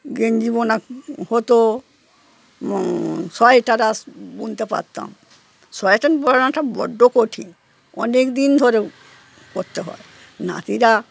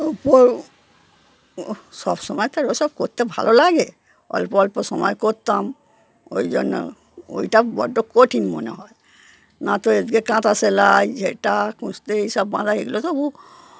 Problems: background sounds at intervals